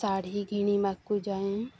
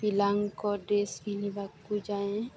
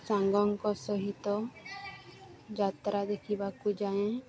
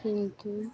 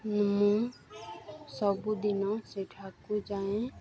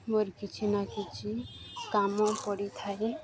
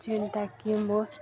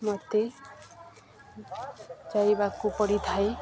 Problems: constant background noise, continuous background conversations